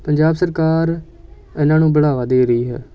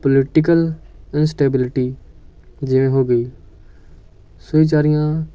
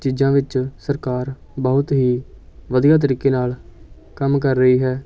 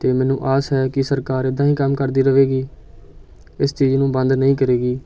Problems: continuous background conversations